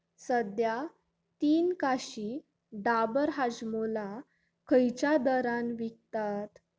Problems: constant background noise